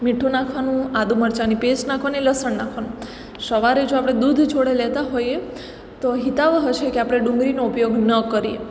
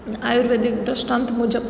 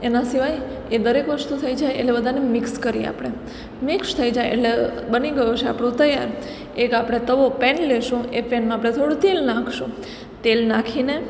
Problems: none marked